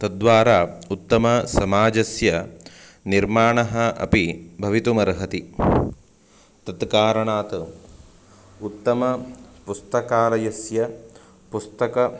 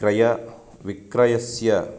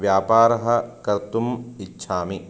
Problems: constant background noise